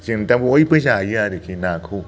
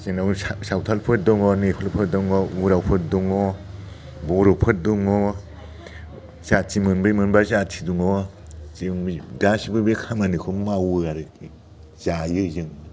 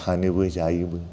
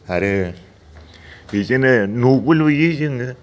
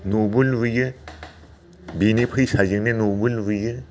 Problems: constant background noise